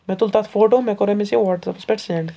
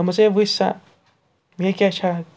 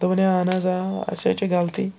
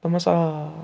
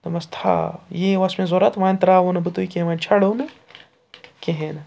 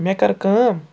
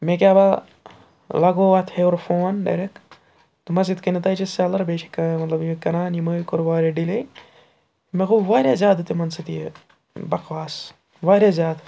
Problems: background sounds at intervals, background conversations at intervals